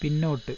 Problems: constant background noise, low volume